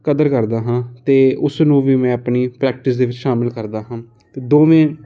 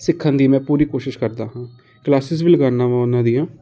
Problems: none marked